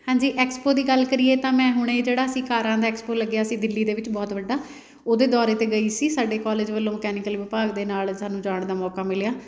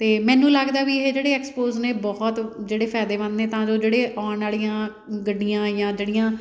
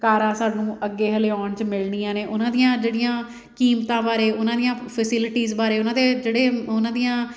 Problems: background sounds at intervals